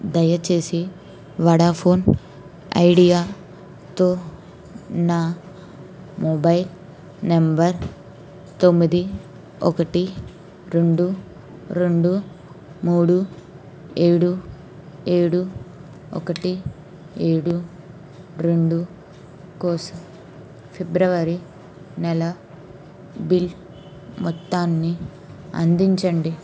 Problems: constant background noise